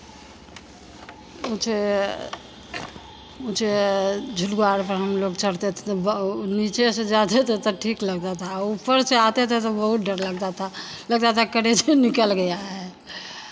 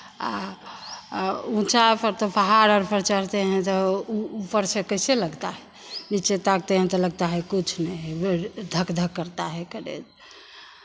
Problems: constant background noise